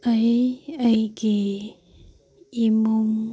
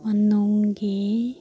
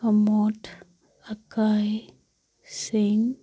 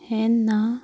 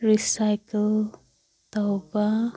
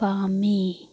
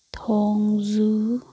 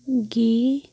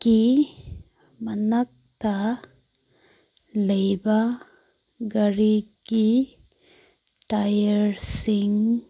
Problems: background sounds at intervals